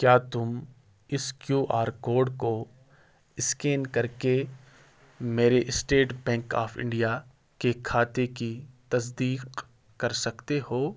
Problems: background sounds at intervals